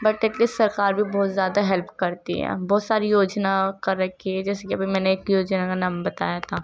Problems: constant background noise, low volume